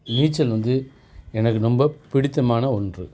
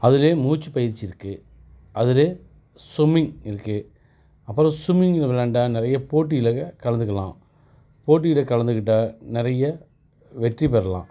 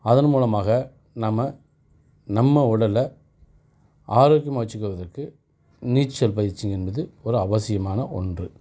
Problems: none marked